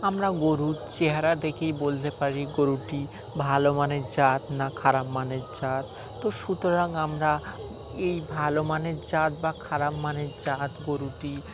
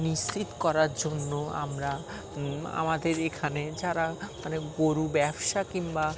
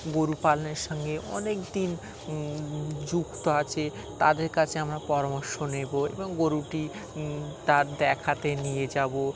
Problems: constant background noise